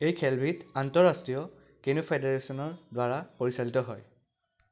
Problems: none marked